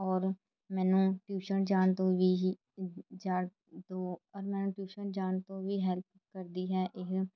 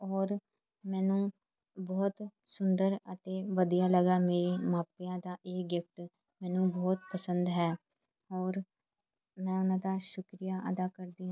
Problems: background sounds at intervals, background conversations at intervals